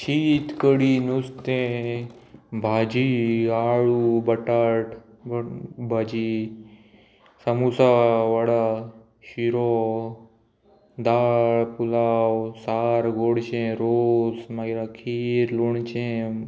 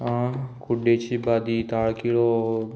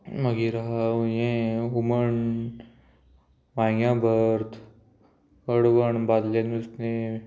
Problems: constant background noise